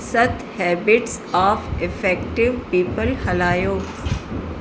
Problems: constant background noise, echo